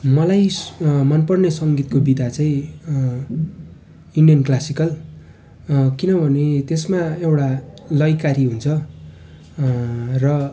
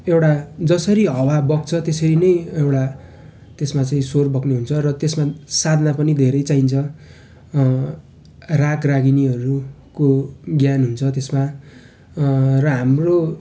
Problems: none marked